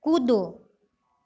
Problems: constant background noise, background conversations at intervals